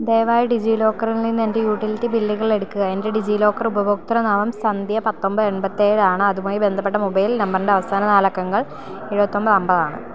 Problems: none marked